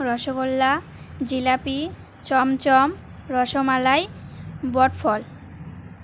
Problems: constant background noise